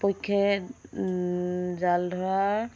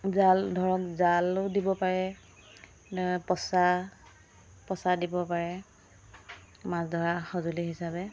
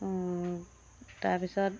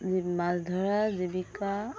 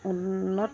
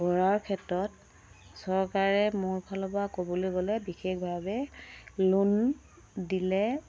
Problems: constant background noise